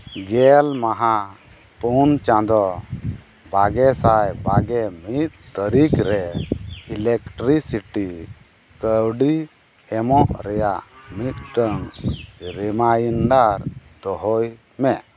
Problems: background sounds at intervals